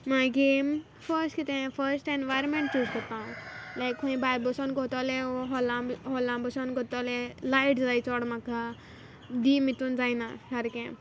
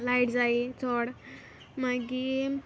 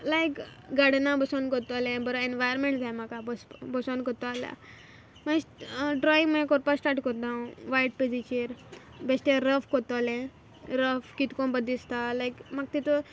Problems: background sounds at intervals